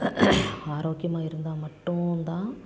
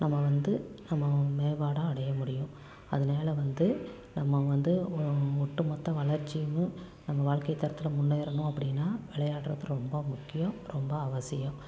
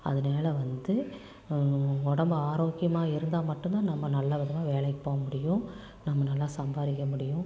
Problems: low volume